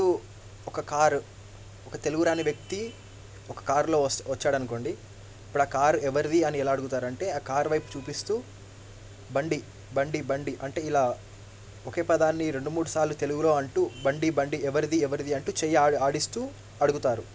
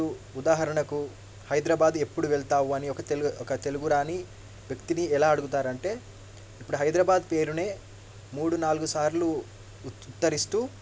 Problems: low volume